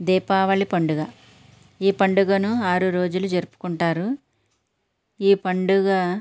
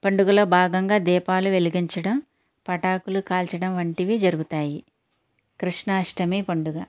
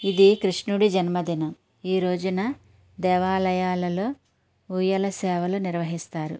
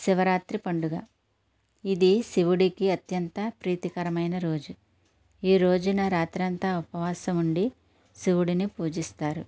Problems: none marked